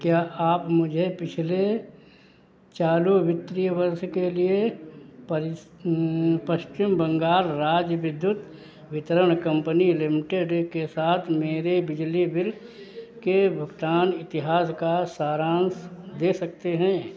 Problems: background sounds at intervals